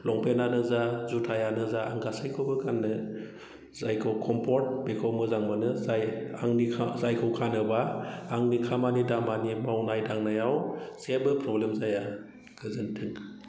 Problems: low volume